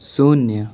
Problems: none marked